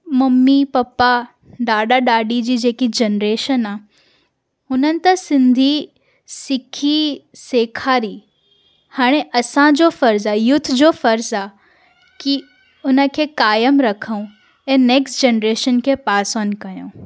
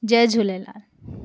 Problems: none marked